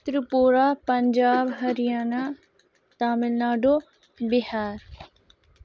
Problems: none marked